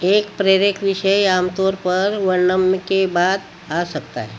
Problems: constant background noise